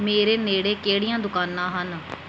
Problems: background sounds at intervals